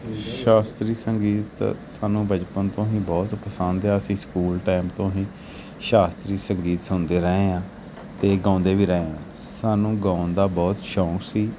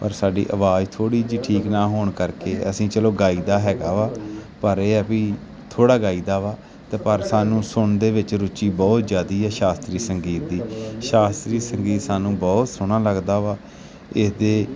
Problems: background sounds at intervals